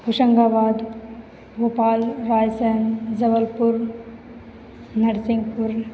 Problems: none marked